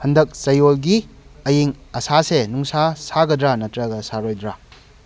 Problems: background sounds at intervals